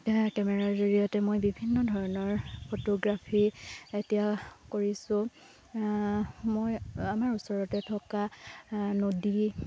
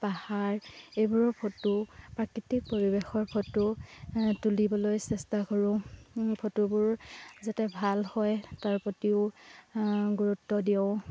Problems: constant background noise